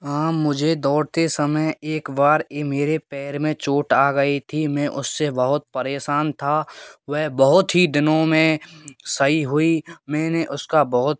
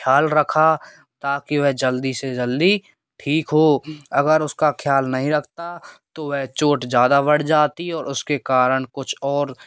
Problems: none marked